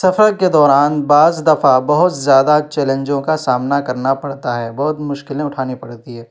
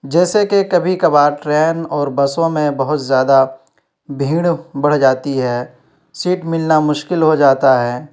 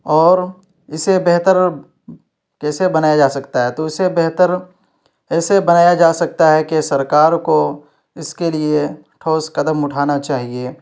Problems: none marked